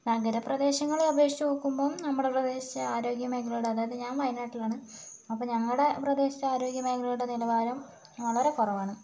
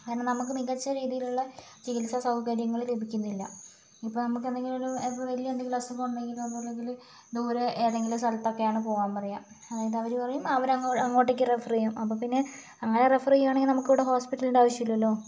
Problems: constant background noise